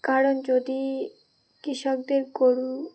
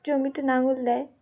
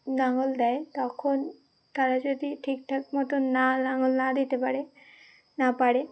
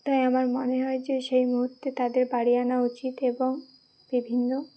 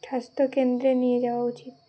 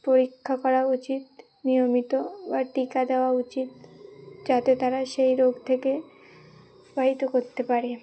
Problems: none marked